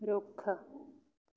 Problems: none marked